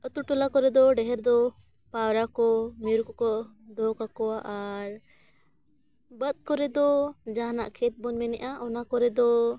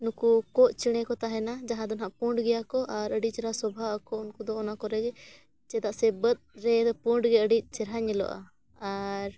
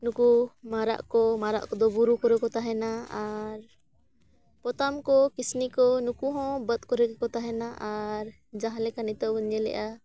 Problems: none marked